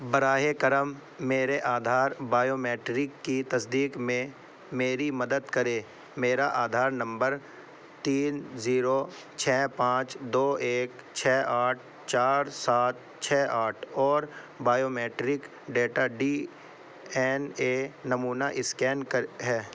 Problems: none marked